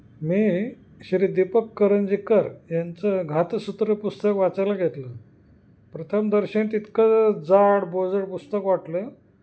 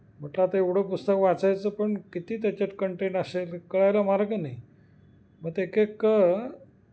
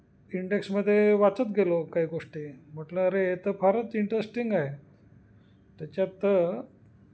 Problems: constant background noise